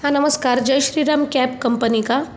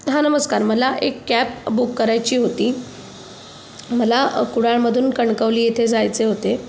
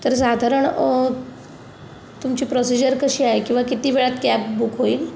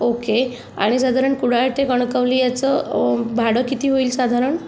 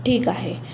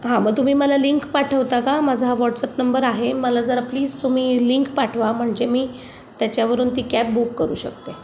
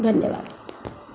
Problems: background sounds at intervals